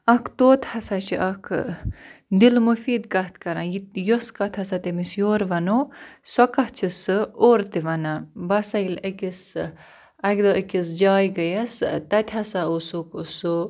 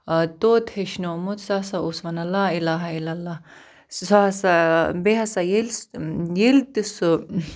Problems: none marked